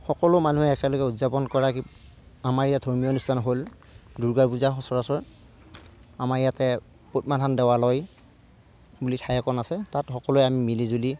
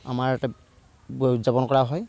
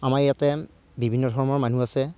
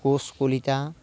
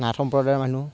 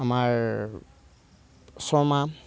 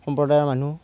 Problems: background sounds at intervals, low volume